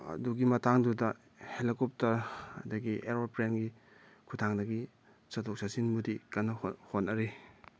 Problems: background sounds at intervals